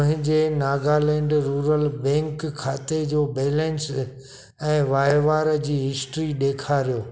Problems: background sounds at intervals